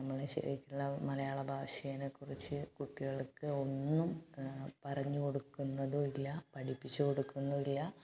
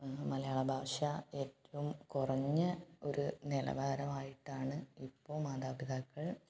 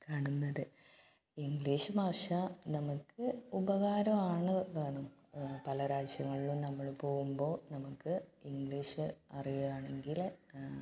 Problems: background sounds at intervals, low volume